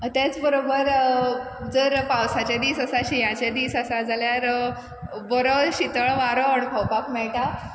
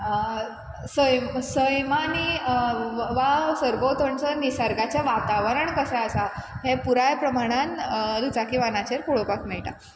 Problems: constant background noise